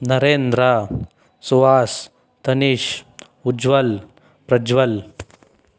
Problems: none marked